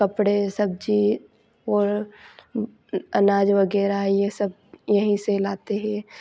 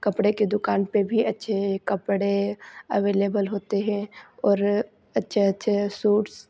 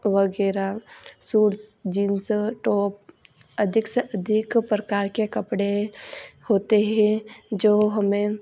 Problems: none marked